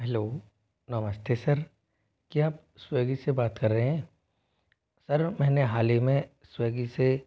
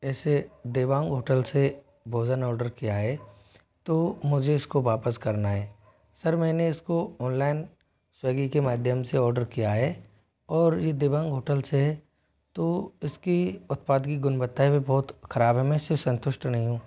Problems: background sounds at intervals